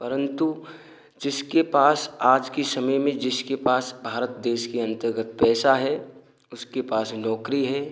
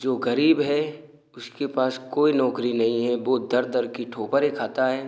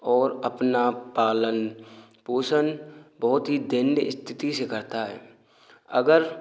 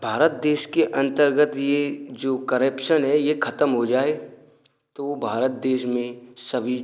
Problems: none marked